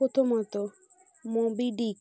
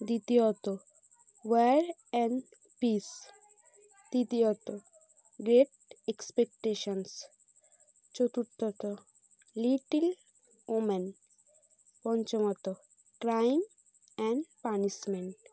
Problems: constant background noise